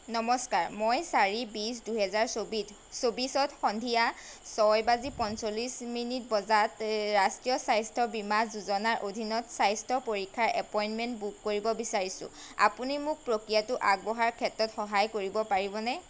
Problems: constant background noise